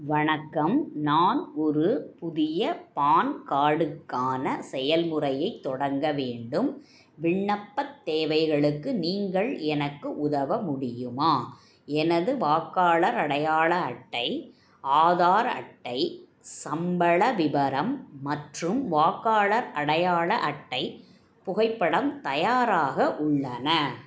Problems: none marked